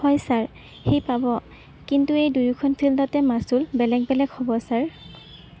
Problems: constant background noise